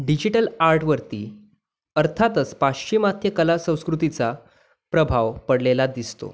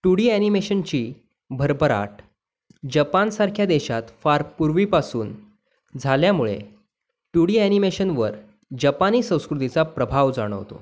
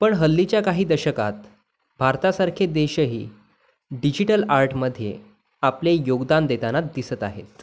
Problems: none marked